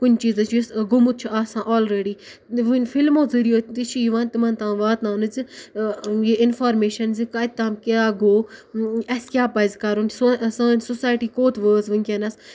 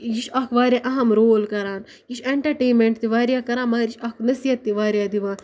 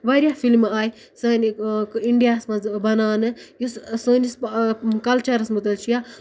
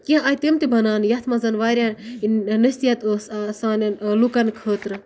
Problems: none marked